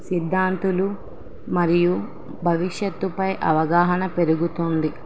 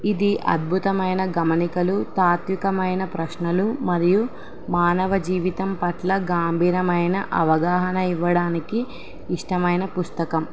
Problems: constant background noise